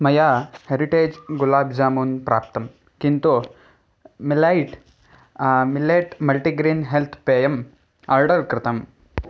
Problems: background sounds at intervals